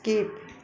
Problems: none marked